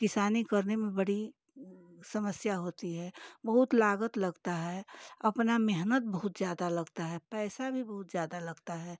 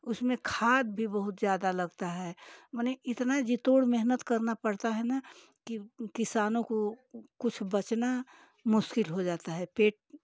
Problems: none marked